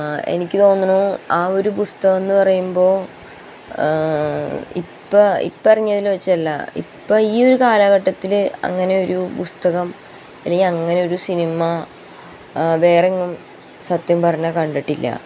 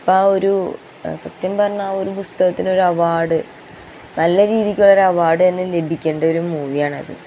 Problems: constant background noise